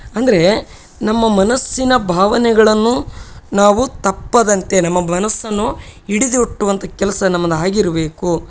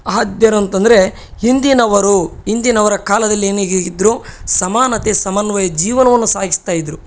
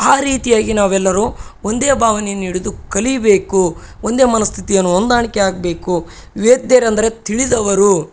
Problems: none marked